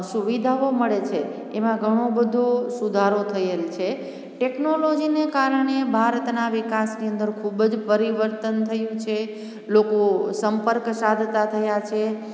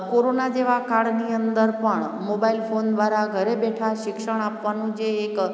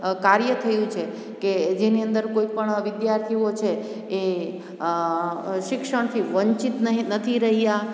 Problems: constant background noise